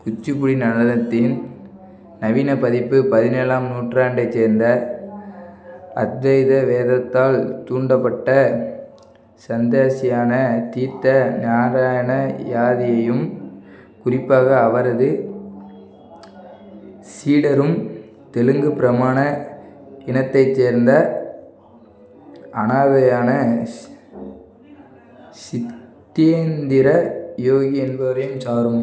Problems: none marked